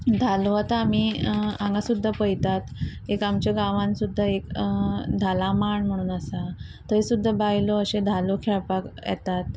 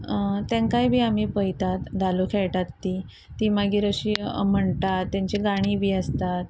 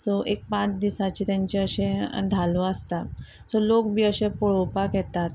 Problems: constant background noise